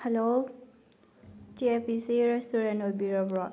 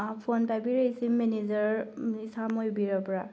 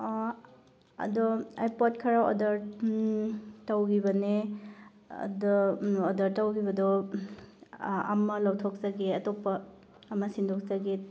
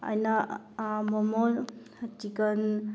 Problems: background sounds at intervals, background conversations at intervals